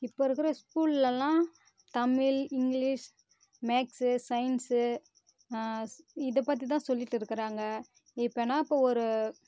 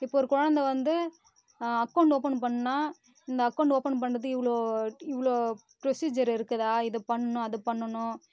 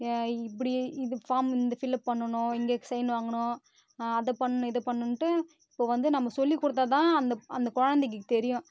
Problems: constant background noise